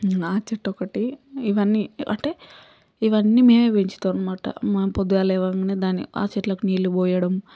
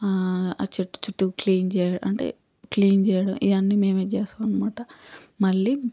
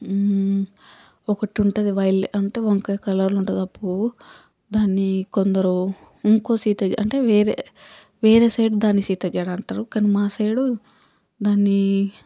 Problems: background sounds at intervals